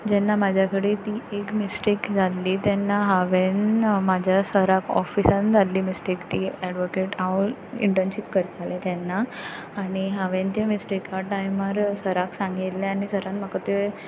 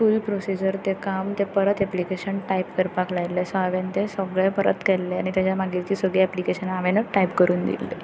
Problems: none marked